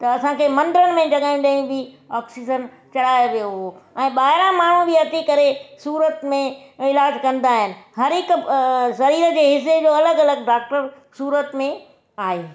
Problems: background sounds at intervals